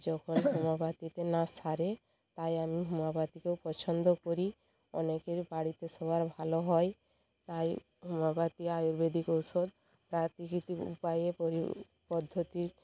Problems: constant background noise, background conversations at intervals